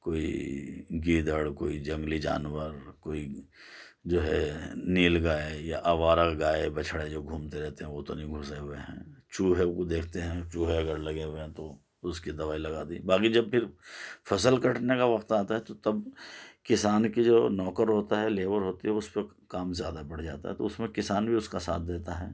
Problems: none marked